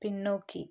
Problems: low volume